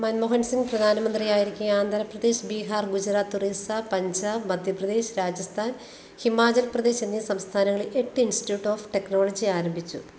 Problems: constant background noise